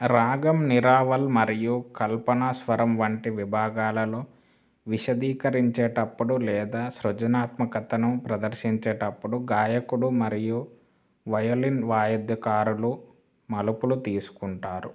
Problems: constant background noise